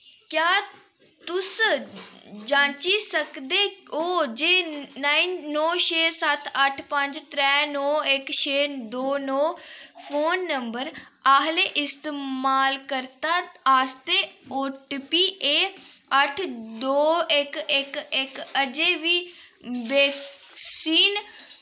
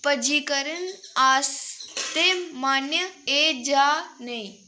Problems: constant background noise